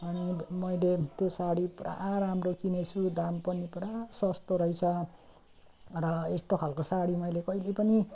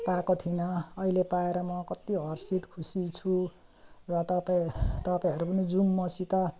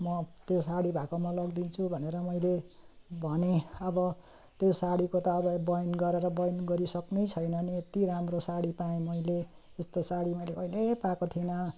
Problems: continuous background conversations